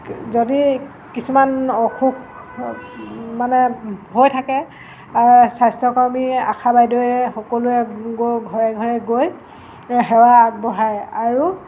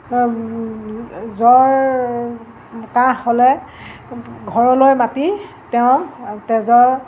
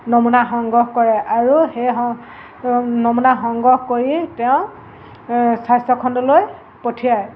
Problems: constant background noise